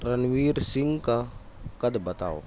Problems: constant background noise, background conversations at intervals